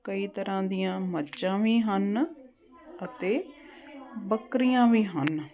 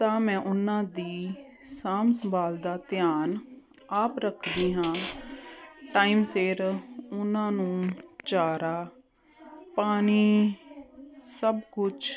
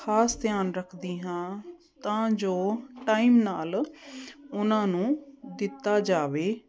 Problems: none marked